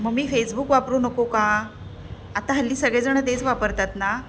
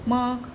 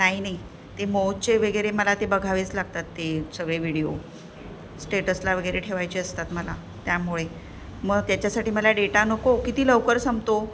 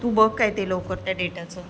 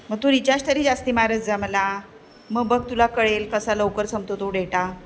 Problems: none marked